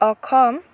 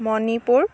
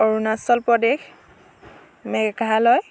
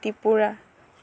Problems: constant background noise